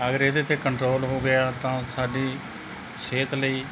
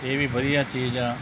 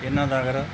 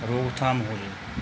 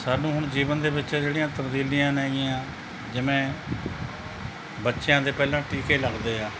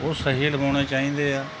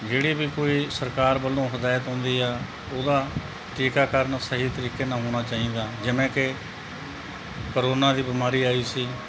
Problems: constant background noise